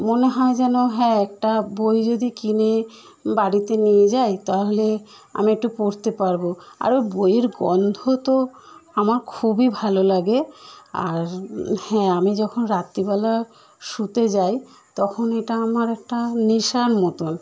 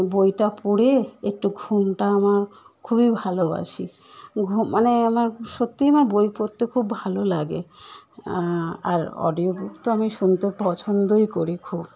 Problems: none marked